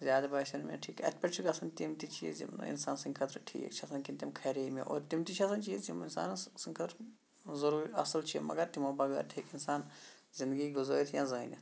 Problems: background sounds at intervals, low volume